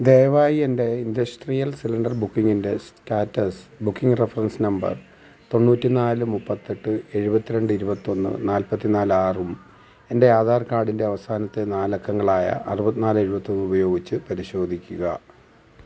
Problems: background sounds at intervals